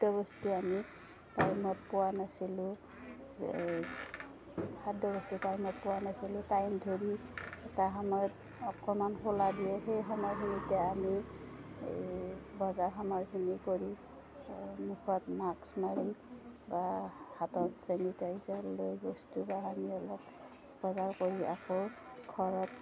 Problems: constant background noise